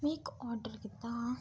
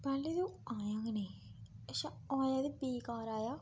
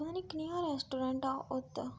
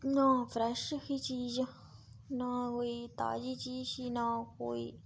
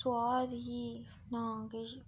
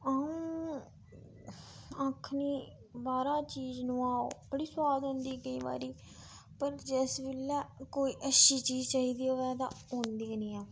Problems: background sounds at intervals